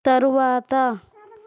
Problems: background conversations at intervals